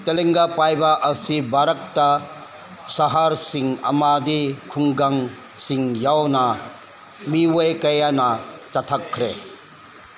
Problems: constant background noise